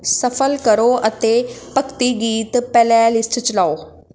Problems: constant background noise